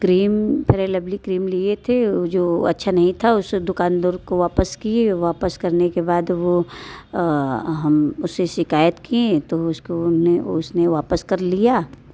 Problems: none marked